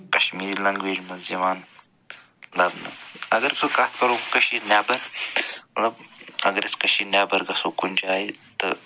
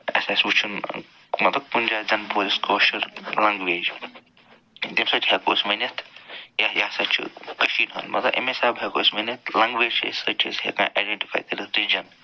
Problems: none marked